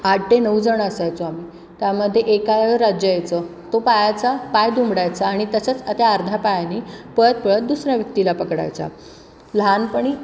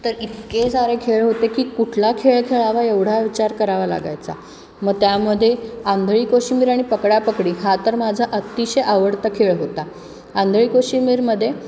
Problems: constant background noise